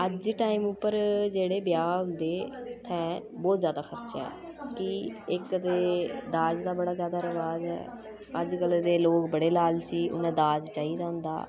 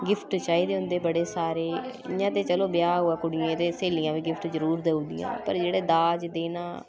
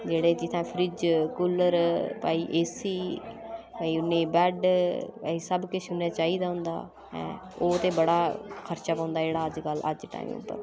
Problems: constant background noise